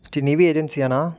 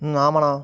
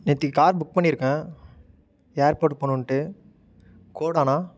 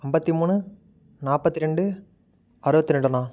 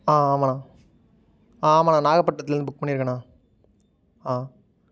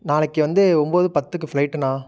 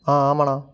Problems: none marked